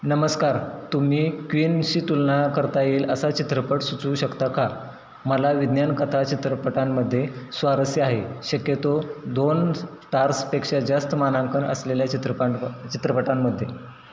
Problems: constant background noise